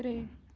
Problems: none marked